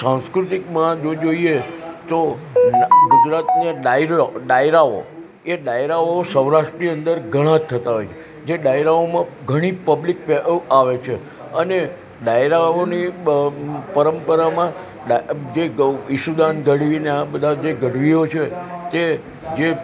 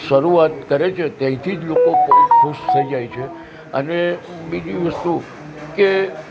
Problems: constant background noise